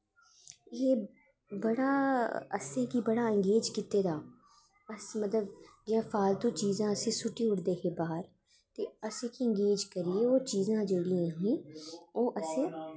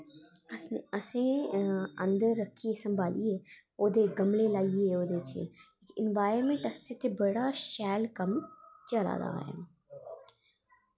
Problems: echo